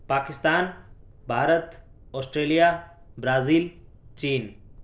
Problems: none marked